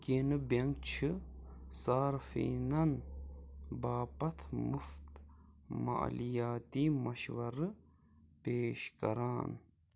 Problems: low volume